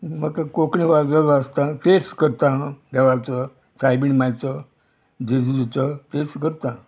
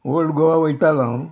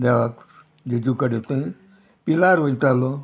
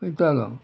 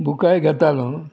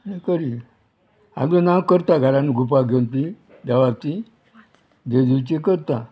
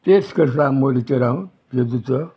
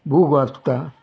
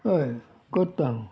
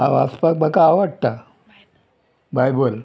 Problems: background sounds at intervals